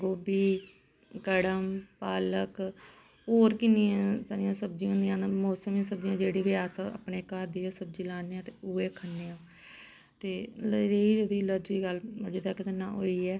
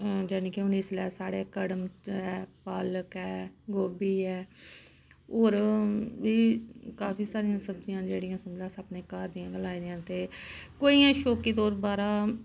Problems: constant background noise